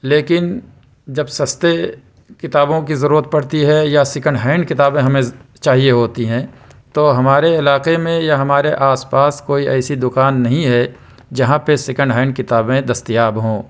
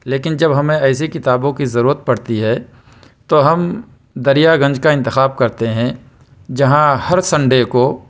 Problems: none marked